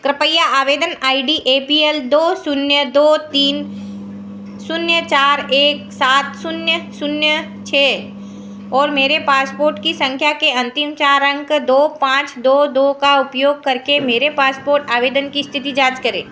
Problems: background sounds at intervals, echo